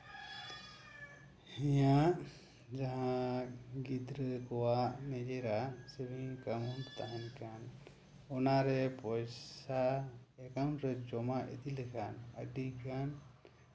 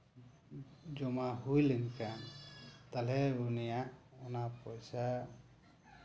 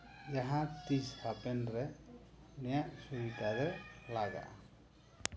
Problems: none marked